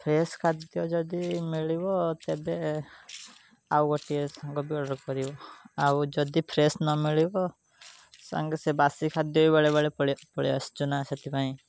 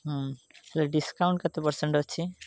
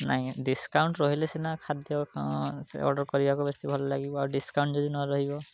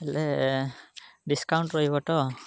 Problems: constant background noise